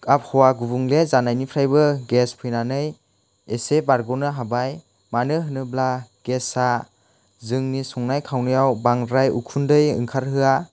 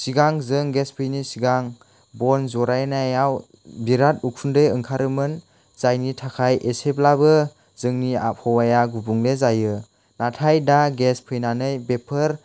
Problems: none marked